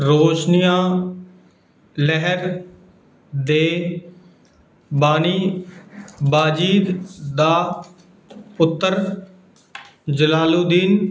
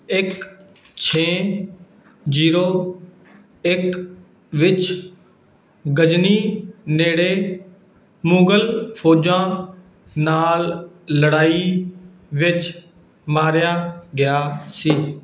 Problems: background sounds at intervals